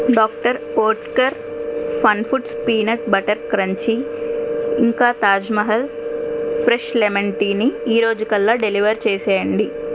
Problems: constant background noise